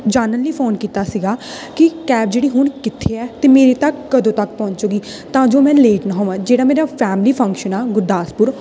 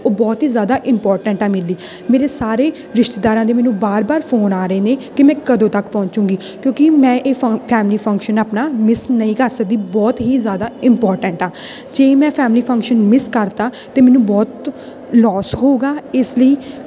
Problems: constant background noise